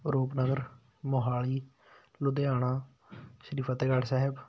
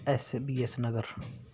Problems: background sounds at intervals